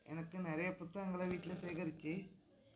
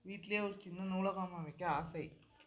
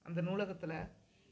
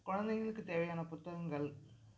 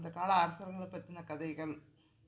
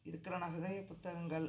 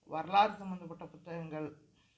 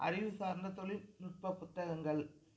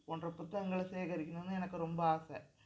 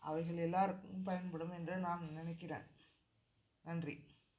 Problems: background sounds at intervals, low volume